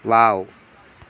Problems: background sounds at intervals